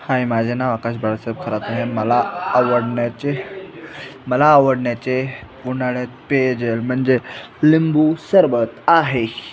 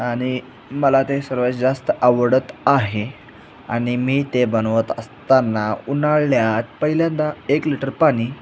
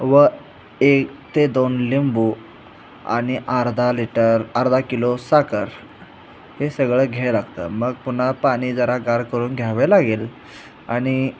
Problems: none marked